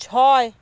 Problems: none marked